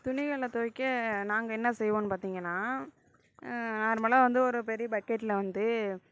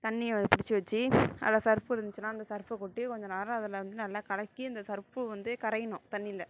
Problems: none marked